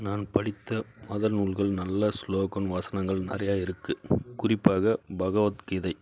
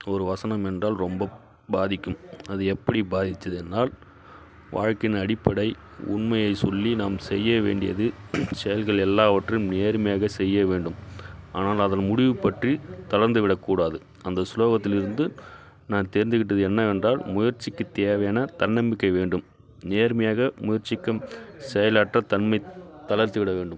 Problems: background sounds at intervals